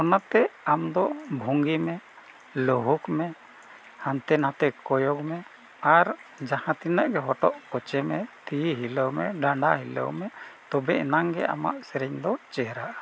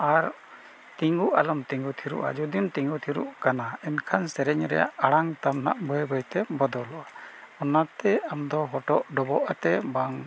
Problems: none marked